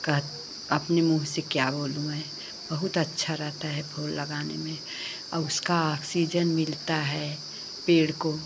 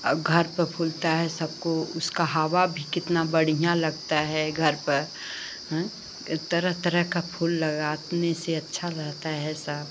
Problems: none marked